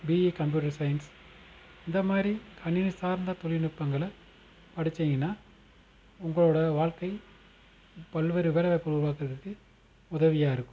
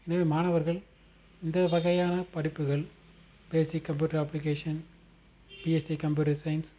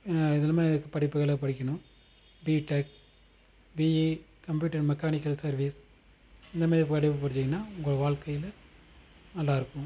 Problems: constant background noise